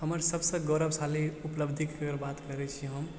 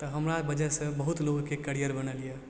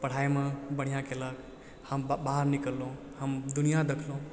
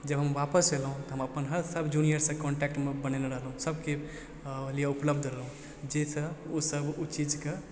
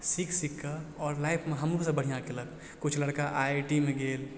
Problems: none marked